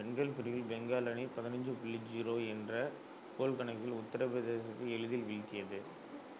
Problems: background sounds at intervals, low volume